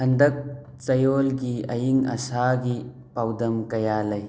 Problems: constant background noise